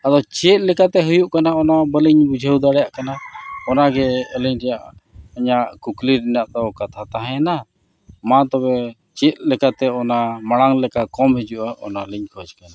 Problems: none marked